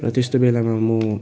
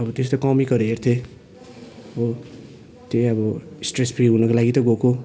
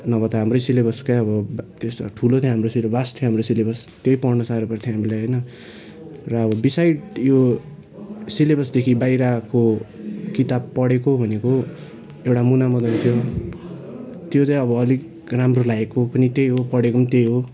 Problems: constant background noise, continuous background conversations